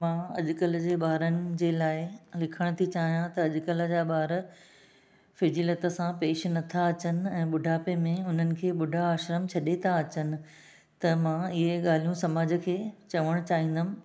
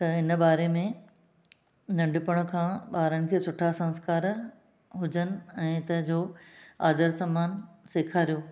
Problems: none marked